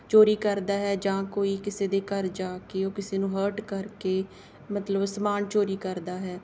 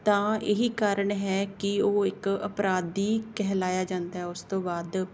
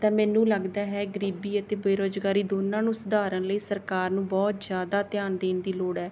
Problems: none marked